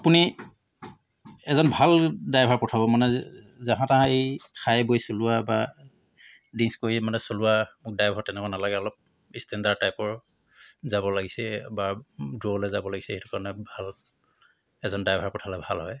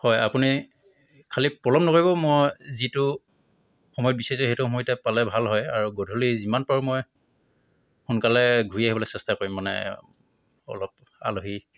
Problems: constant background noise